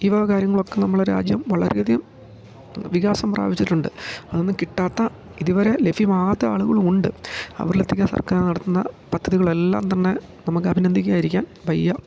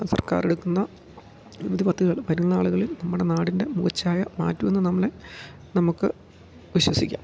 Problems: none marked